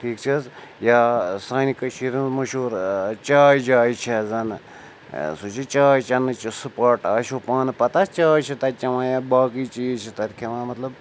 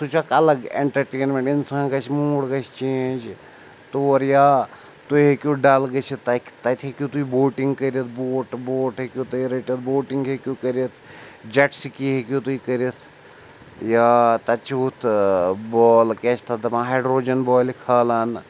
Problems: none marked